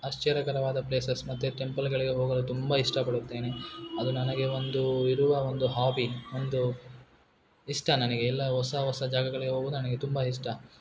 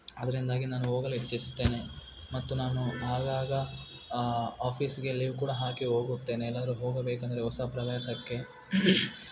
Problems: background sounds at intervals